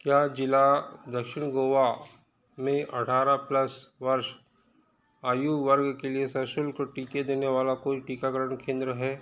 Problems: background conversations at intervals